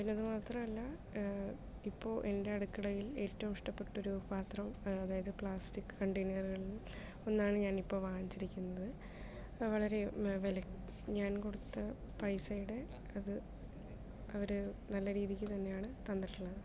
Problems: low volume